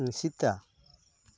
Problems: constant background noise